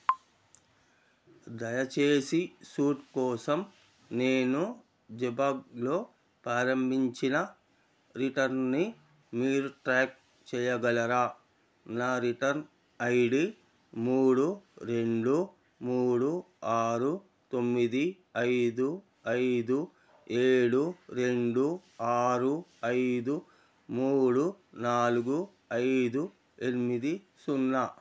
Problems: none marked